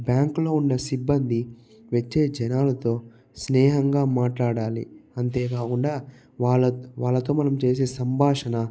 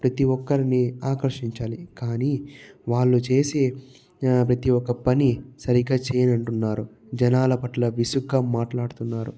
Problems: low volume